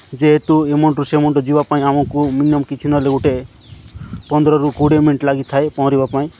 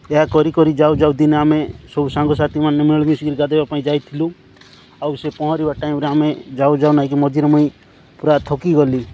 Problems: constant background noise